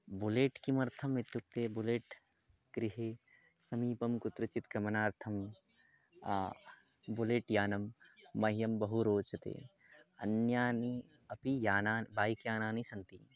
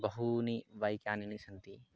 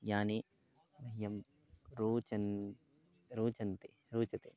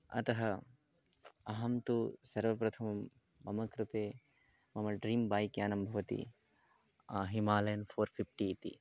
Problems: background sounds at intervals, low volume